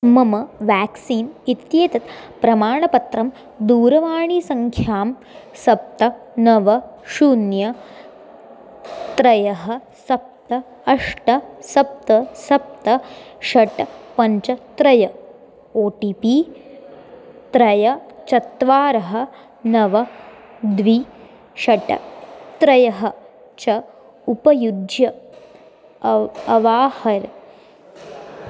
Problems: constant background noise